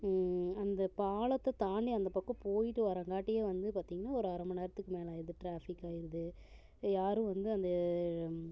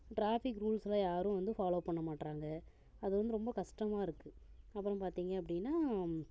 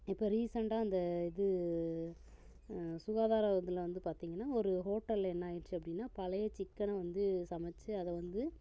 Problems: low volume